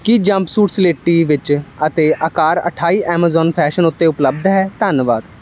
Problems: none marked